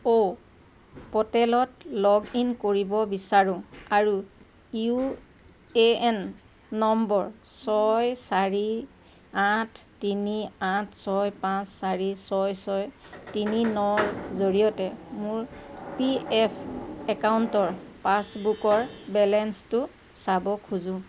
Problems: constant background noise